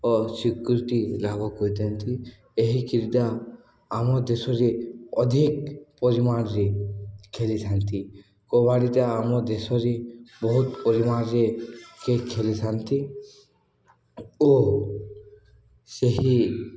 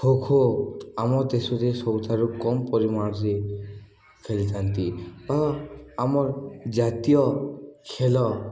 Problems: none marked